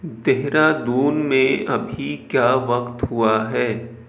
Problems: none marked